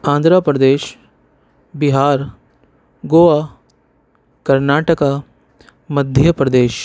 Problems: none marked